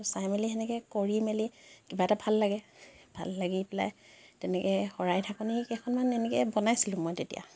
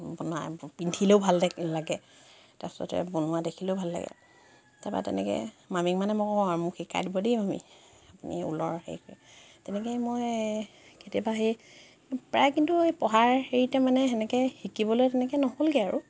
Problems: none marked